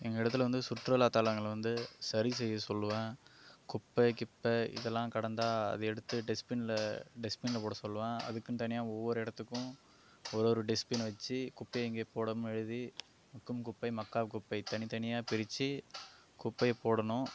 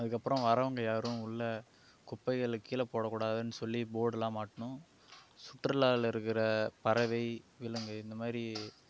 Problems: none marked